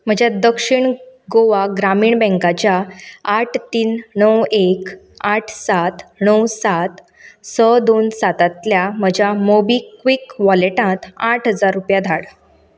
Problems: none marked